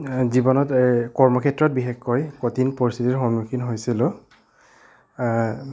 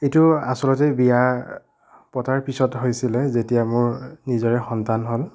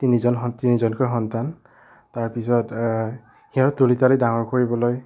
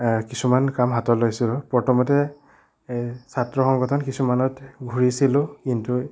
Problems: none marked